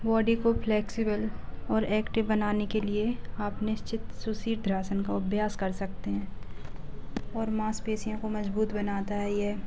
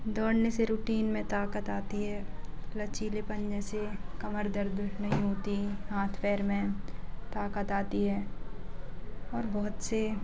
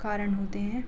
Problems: constant background noise, low volume